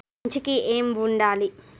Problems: none marked